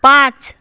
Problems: constant background noise